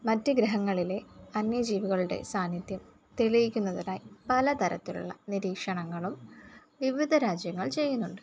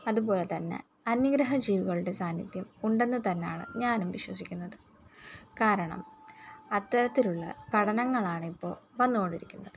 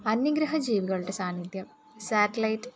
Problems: none marked